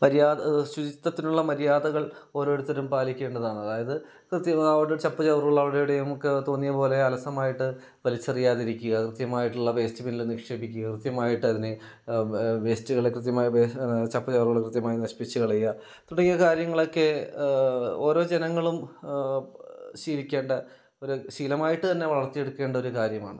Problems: none marked